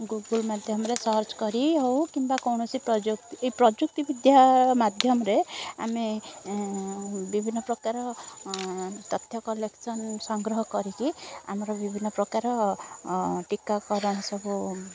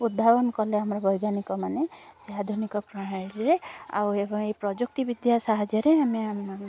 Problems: constant background noise, continuous background conversations